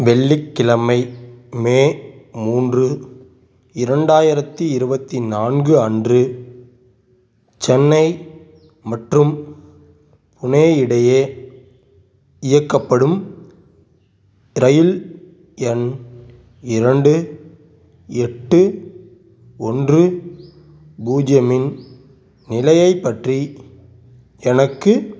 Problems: background sounds at intervals